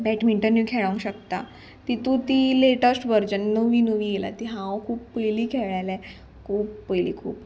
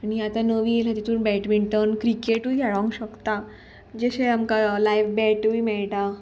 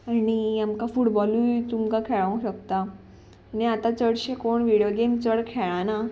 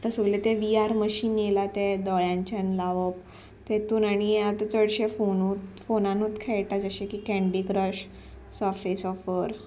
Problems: background sounds at intervals